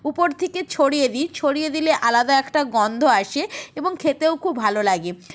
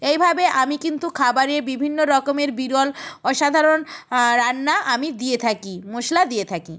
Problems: background sounds at intervals